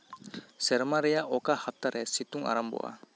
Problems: none marked